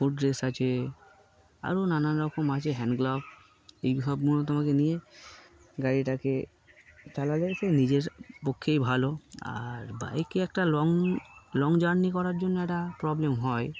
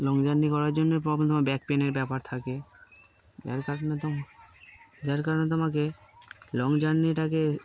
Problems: constant background noise